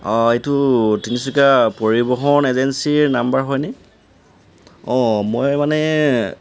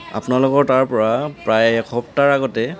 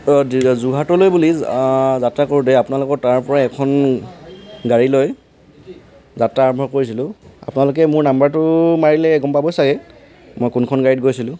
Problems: background sounds at intervals